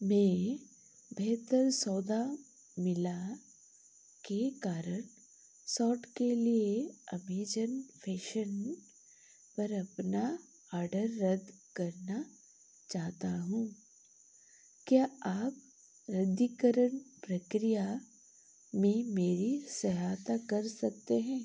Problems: none marked